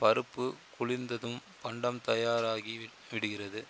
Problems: constant background noise